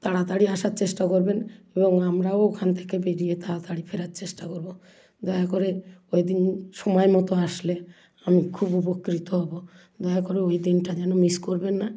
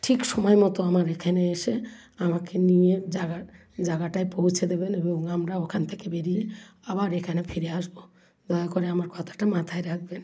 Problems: none marked